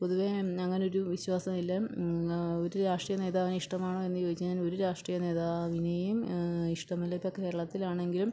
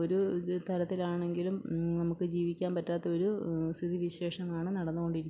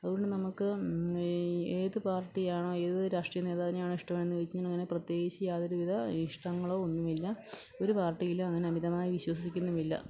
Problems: low volume